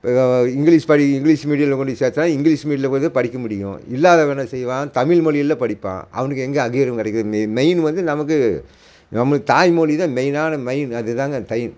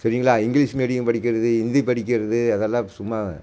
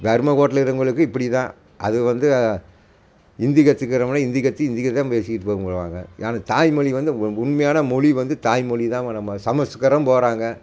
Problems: constant background noise